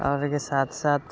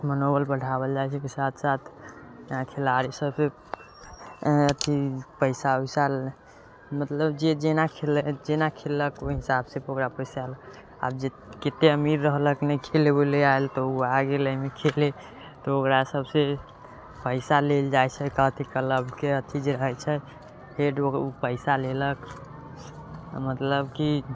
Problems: constant background noise